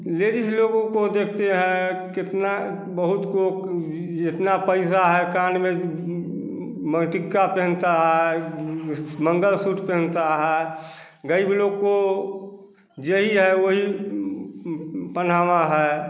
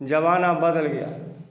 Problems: constant background noise, echo